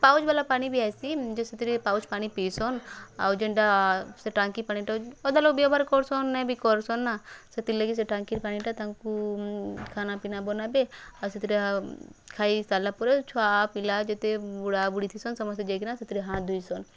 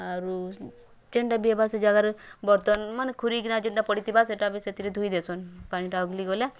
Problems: background conversations at intervals